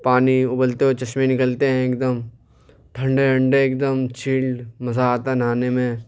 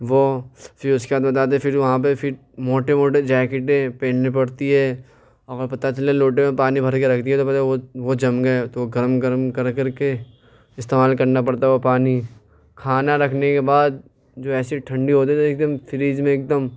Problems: none marked